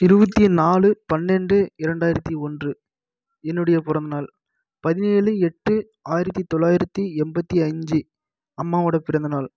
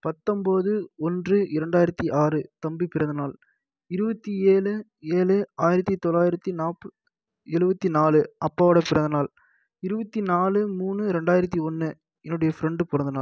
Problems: none marked